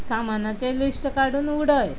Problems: constant background noise